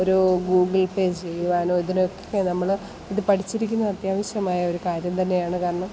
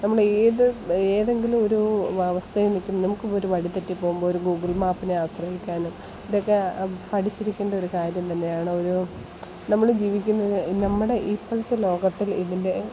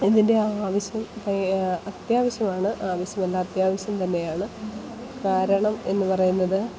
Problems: constant background noise, background conversations at intervals